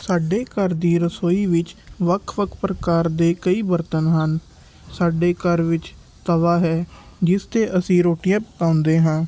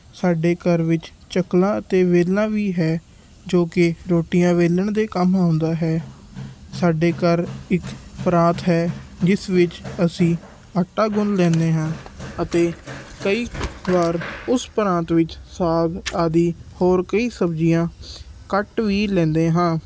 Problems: background sounds at intervals